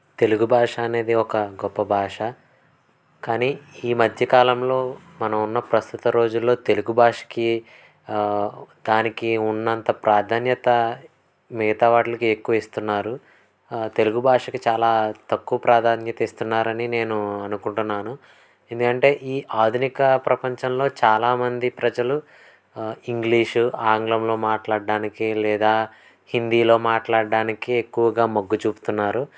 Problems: constant background noise